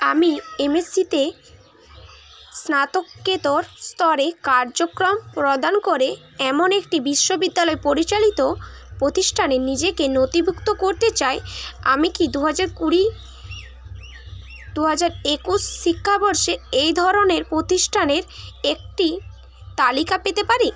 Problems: constant background noise, background conversations at intervals